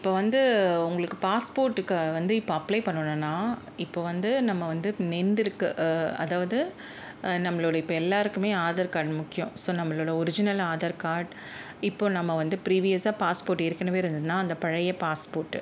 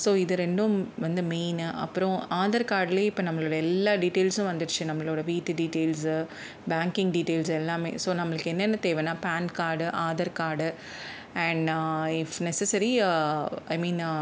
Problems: background sounds at intervals